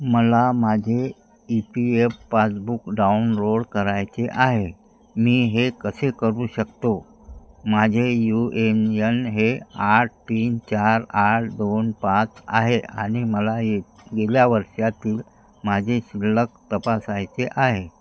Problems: constant background noise, background conversations at intervals